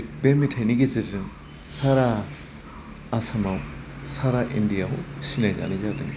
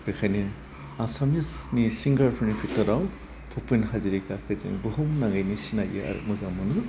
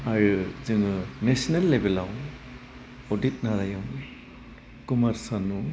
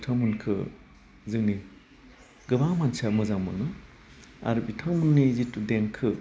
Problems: constant background noise